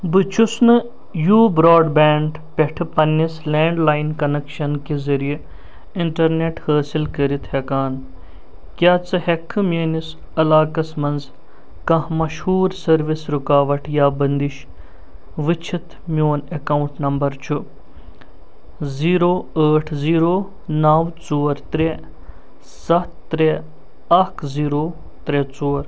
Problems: constant background noise